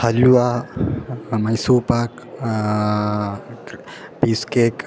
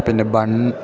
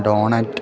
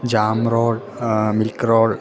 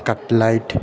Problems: background sounds at intervals